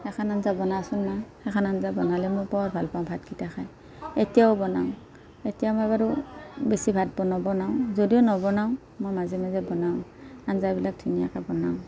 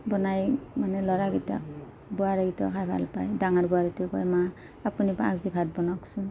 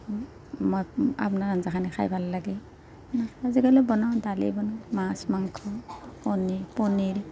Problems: background conversations at intervals